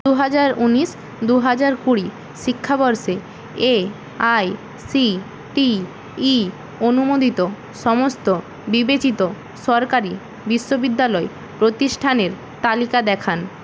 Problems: constant background noise